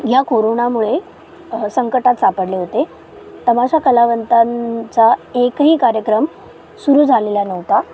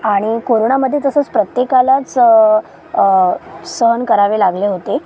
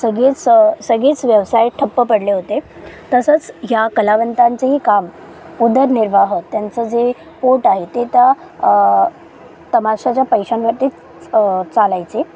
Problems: constant background noise, background conversations at intervals